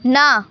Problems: none marked